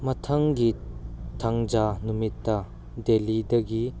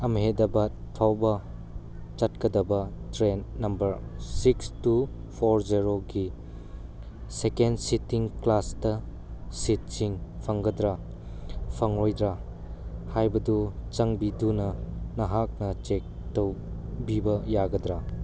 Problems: constant background noise